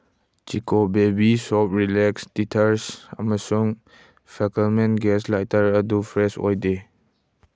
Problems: none marked